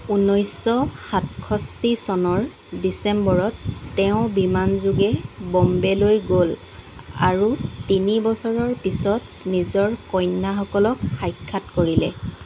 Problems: constant background noise